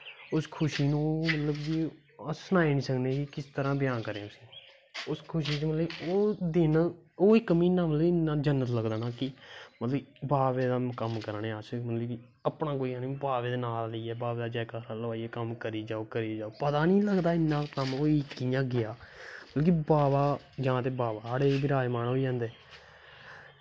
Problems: constant background noise